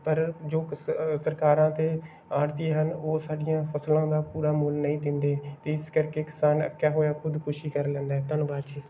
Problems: background sounds at intervals